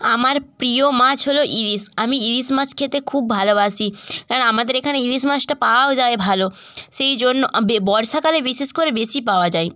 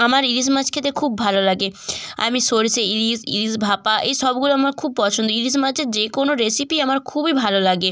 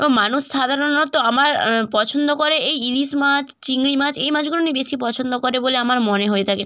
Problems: none marked